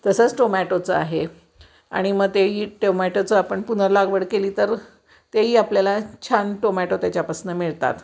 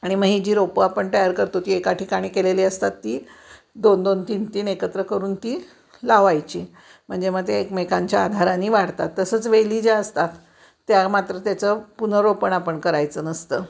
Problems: background sounds at intervals